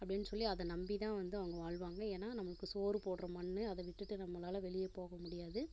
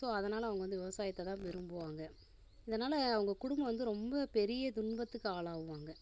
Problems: constant background noise